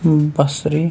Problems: constant background noise